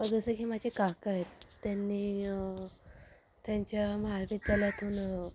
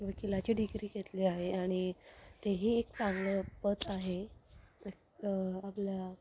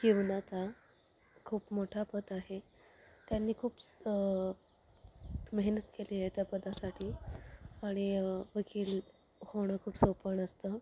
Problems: none marked